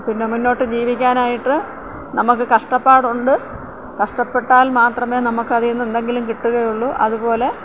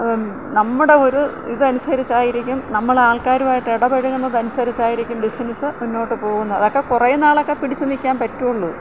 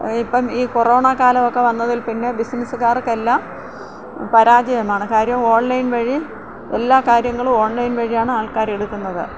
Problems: background sounds at intervals, low volume